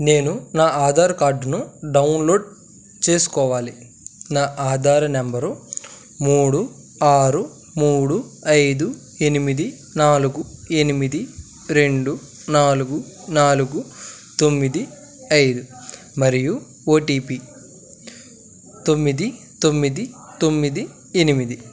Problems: none marked